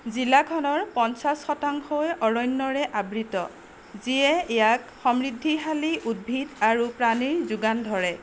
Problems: none marked